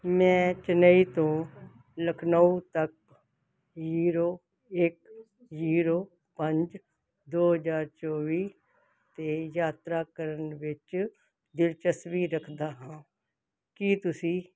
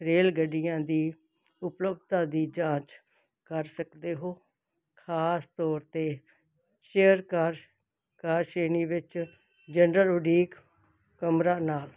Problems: none marked